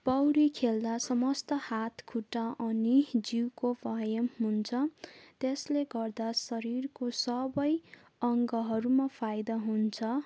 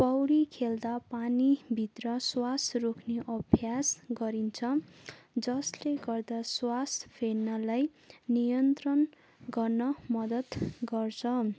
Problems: none marked